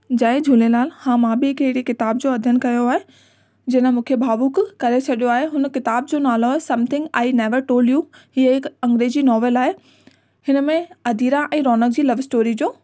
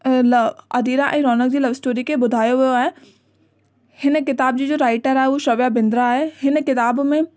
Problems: constant background noise